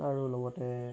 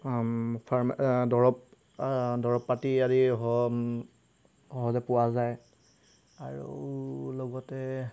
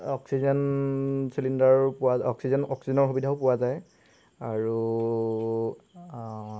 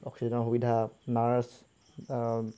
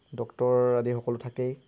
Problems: background sounds at intervals